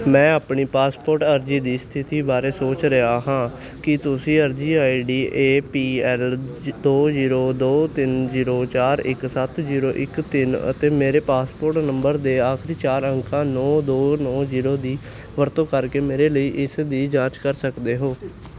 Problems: constant background noise